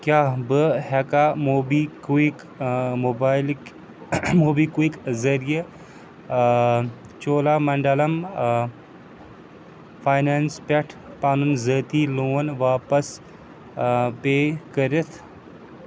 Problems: background sounds at intervals